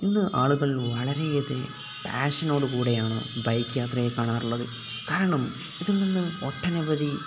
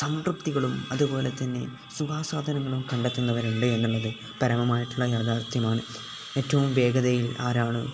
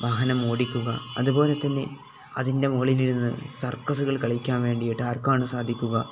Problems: none marked